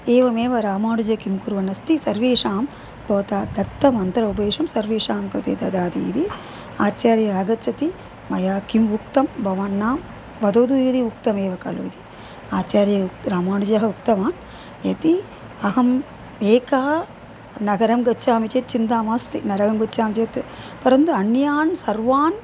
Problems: constant background noise